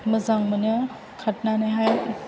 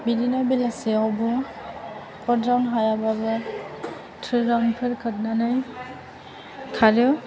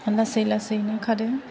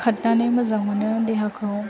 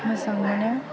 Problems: background sounds at intervals, background conversations at intervals